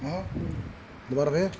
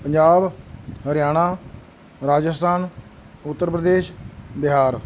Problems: background sounds at intervals